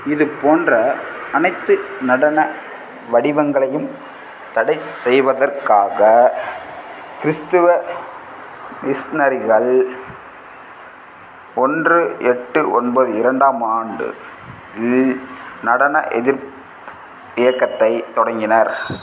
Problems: background sounds at intervals